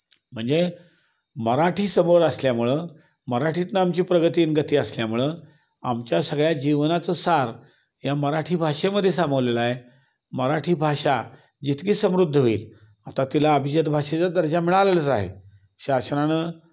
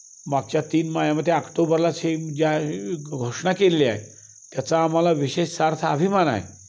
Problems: constant background noise